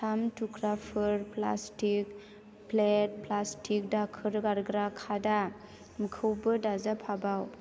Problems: constant background noise